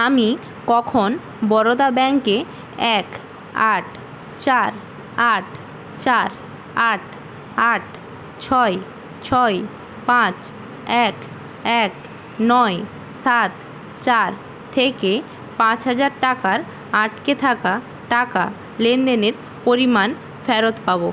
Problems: constant background noise